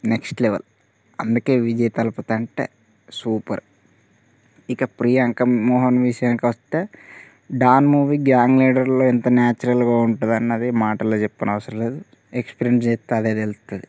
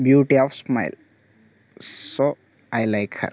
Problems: none marked